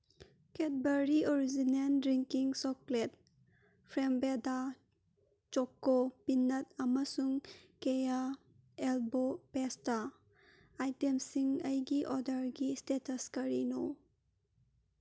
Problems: none marked